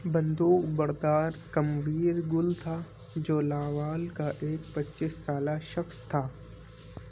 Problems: constant background noise